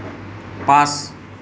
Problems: none marked